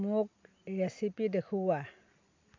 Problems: constant background noise